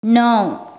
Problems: background sounds at intervals